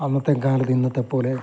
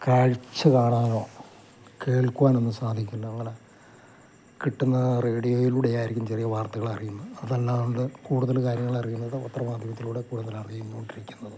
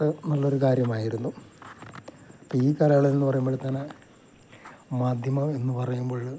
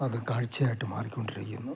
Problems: constant background noise, low volume